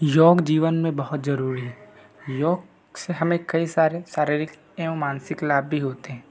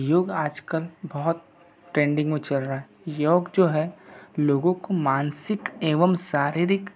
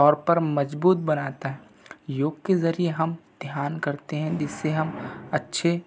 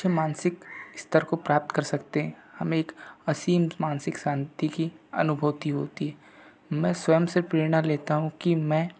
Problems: background sounds at intervals